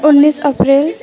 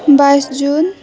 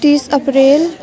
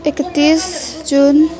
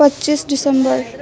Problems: continuous background conversations